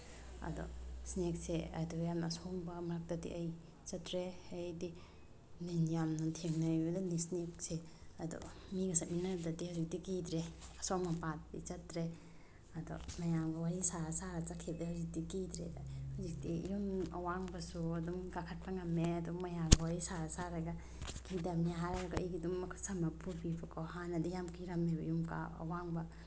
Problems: low volume